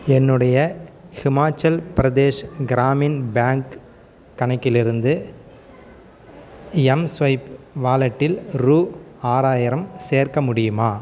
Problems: none marked